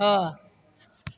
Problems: none marked